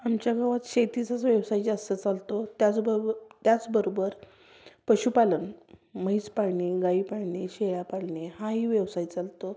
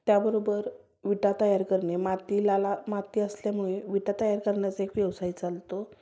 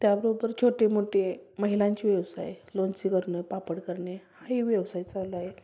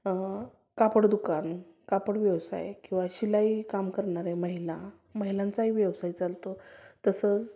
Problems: constant background noise